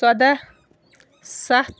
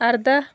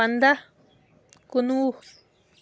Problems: constant background noise